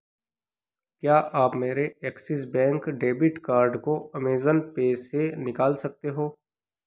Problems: none marked